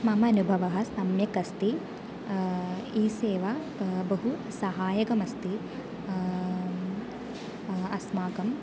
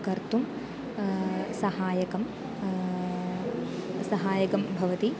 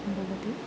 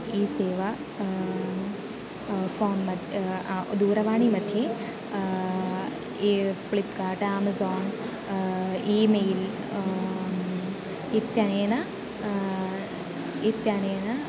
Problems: constant background noise, continuous background conversations